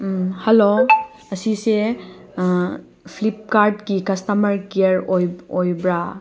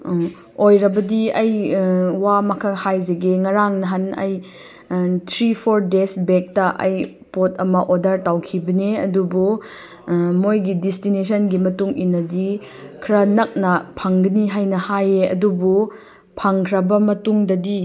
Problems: background sounds at intervals